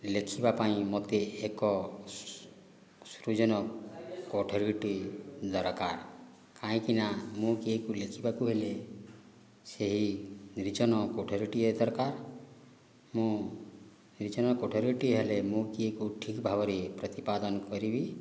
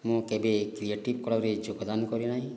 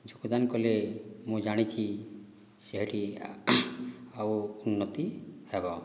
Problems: low volume